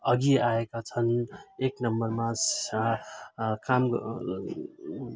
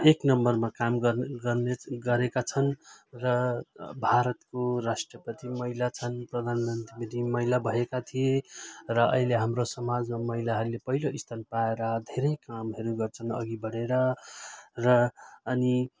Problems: continuous background conversations